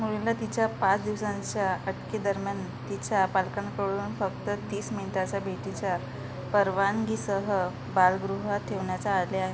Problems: constant background noise, low volume